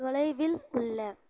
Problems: none marked